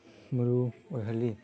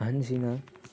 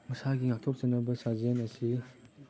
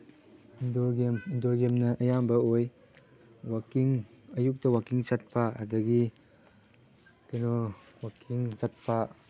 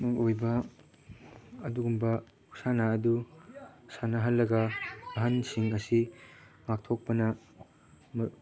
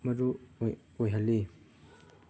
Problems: background sounds at intervals, background conversations at intervals